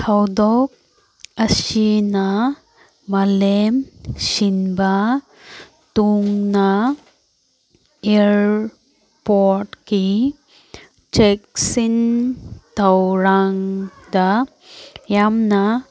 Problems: background conversations at intervals